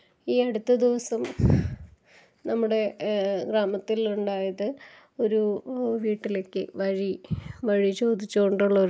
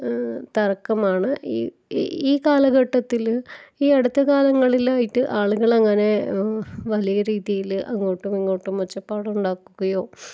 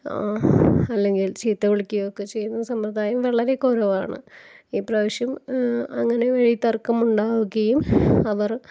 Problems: background sounds at intervals